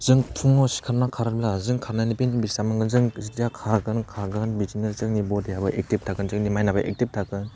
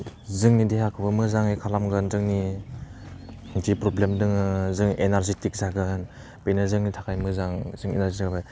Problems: low volume